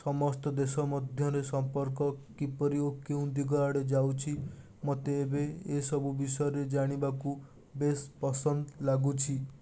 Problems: constant background noise